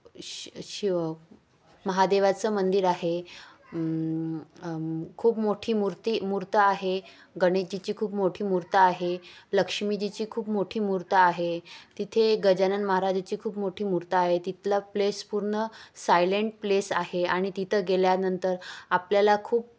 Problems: constant background noise